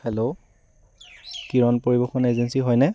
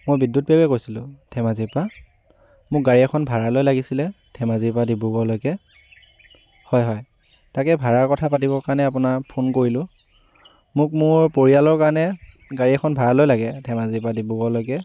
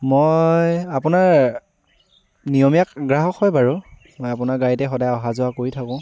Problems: background sounds at intervals